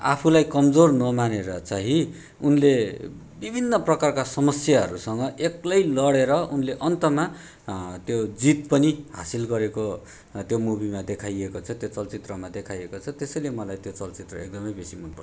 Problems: background sounds at intervals